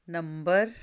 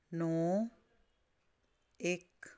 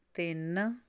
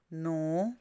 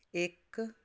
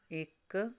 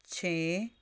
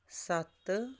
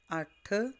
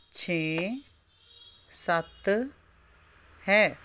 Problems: constant background noise